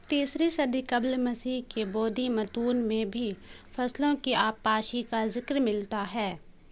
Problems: constant background noise